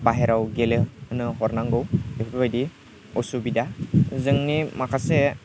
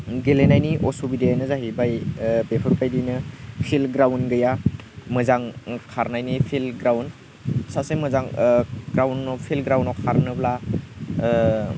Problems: constant background noise